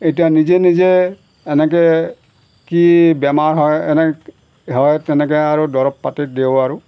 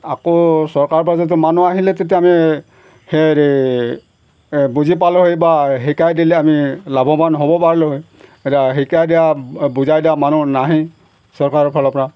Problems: background sounds at intervals